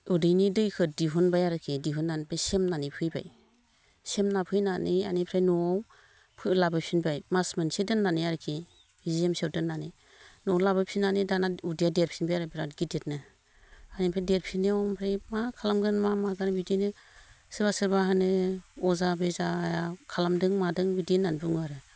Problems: none marked